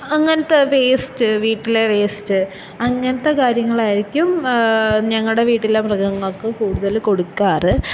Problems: background sounds at intervals